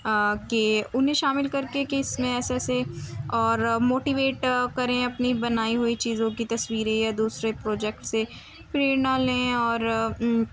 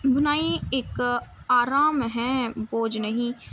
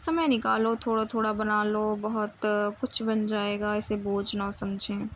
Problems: constant background noise